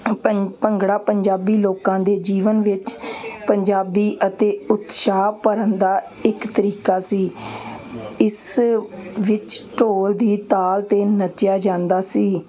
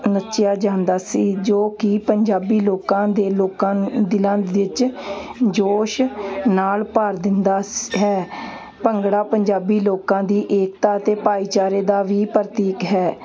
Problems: none marked